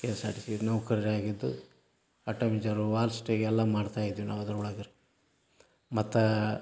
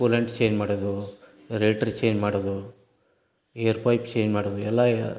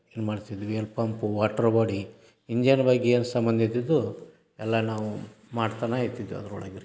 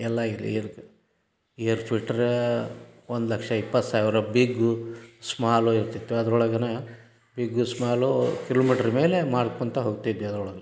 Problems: none marked